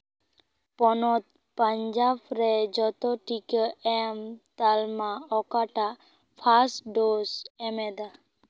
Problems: none marked